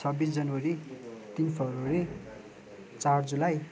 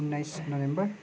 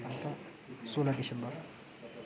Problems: none marked